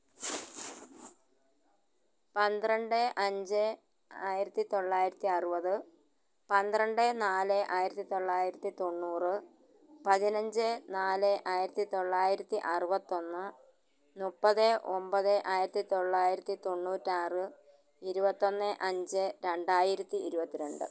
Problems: background sounds at intervals, low volume